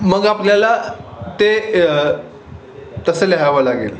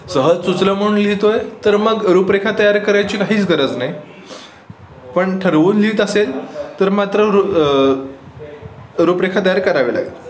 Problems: constant background noise, background conversations at intervals, echo